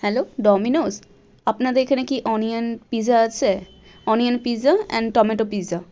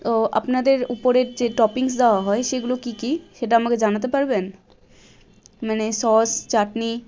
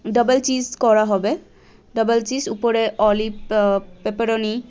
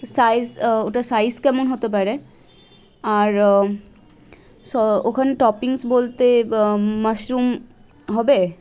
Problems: constant background noise, background conversations at intervals